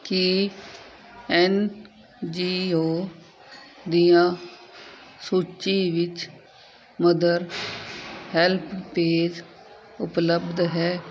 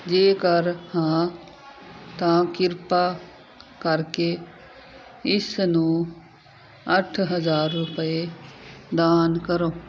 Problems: constant background noise